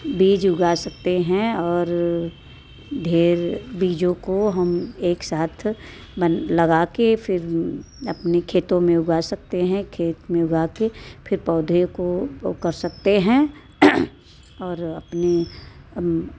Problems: constant background noise